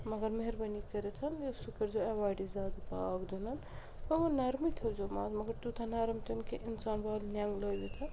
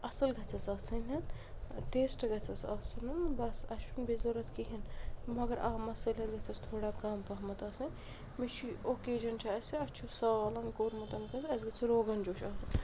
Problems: constant background noise, low volume